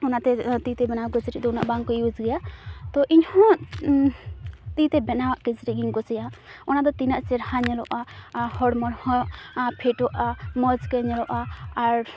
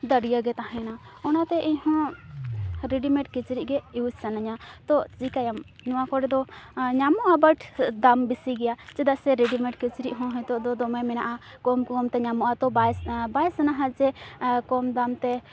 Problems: constant background noise, background conversations at intervals